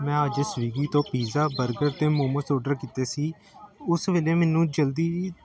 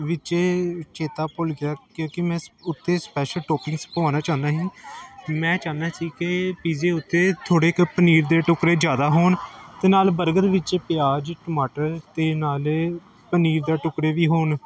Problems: continuous background conversations